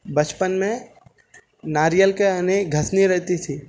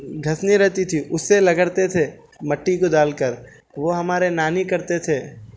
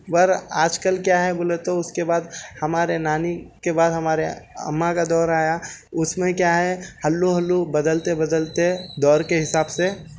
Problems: none marked